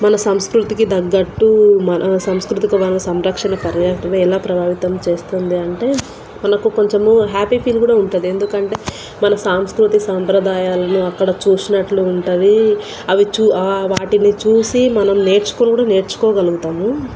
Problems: constant background noise